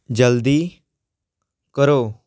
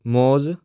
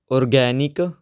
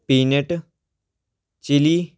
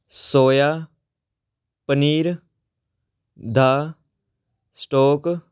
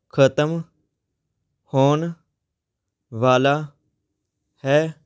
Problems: background sounds at intervals